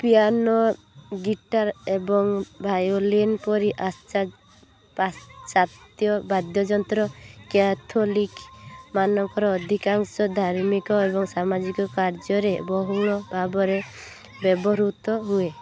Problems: continuous background conversations, low volume